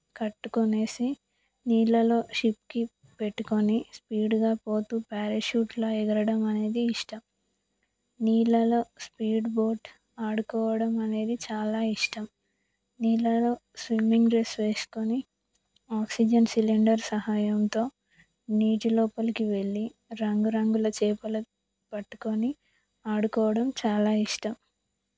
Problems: none marked